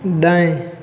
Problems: constant background noise, background conversations at intervals